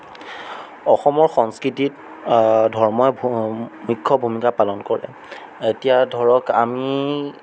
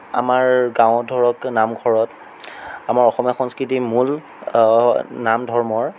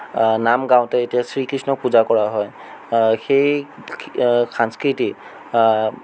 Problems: none marked